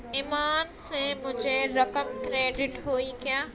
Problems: constant background noise